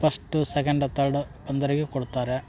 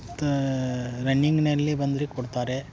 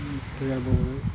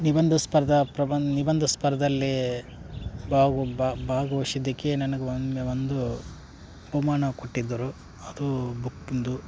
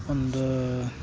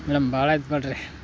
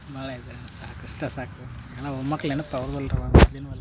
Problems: background conversations at intervals